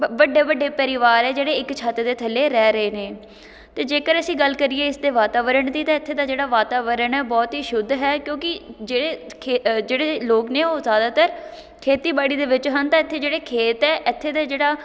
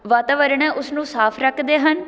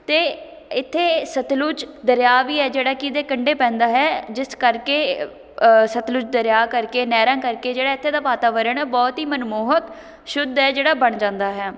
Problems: none marked